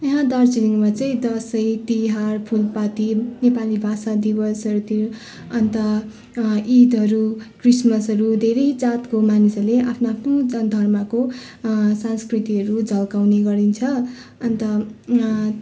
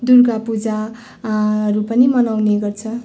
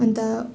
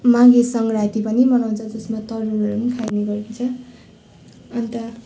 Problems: constant background noise, background conversations at intervals